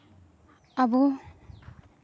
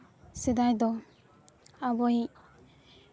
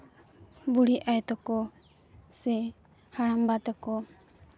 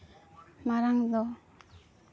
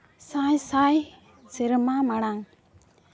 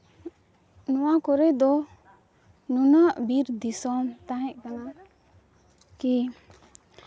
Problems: background conversations at intervals